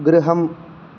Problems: none marked